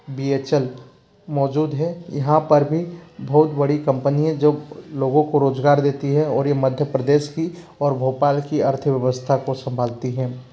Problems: constant background noise